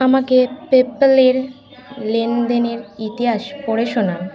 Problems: continuous background conversations